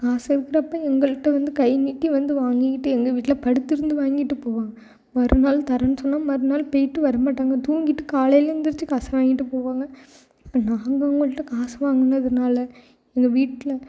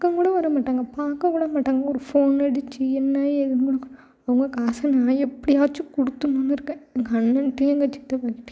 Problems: background sounds at intervals